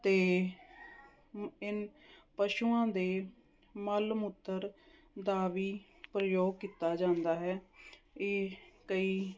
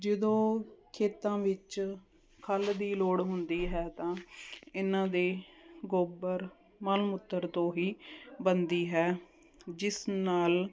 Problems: none marked